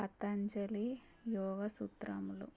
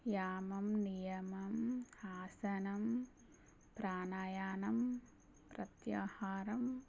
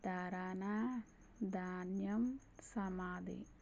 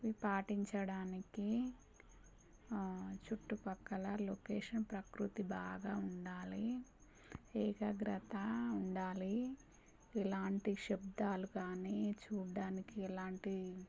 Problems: constant background noise, low volume